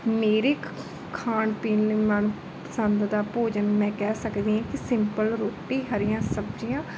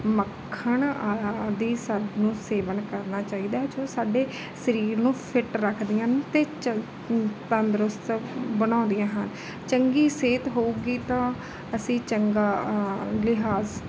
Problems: none marked